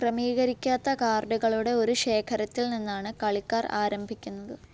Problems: none marked